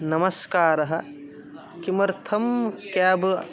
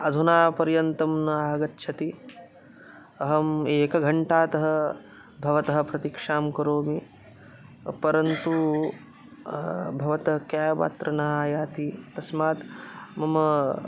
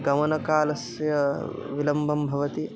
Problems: constant background noise